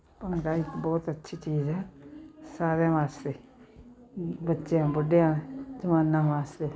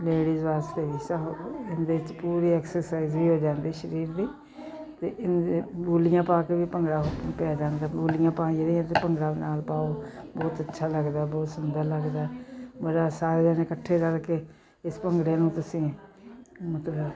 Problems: continuous background conversations